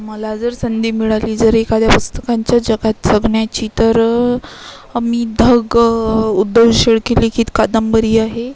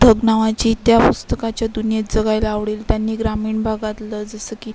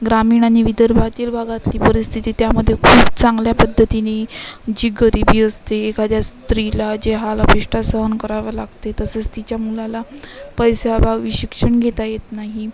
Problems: constant background noise, continuous background conversations